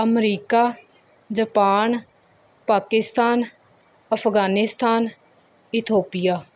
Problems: none marked